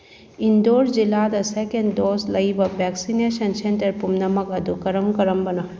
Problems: background sounds at intervals